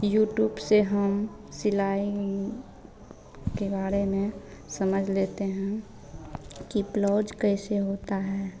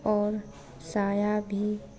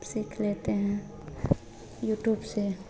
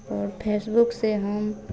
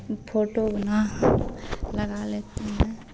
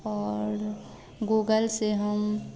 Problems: none marked